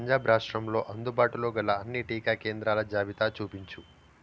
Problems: constant background noise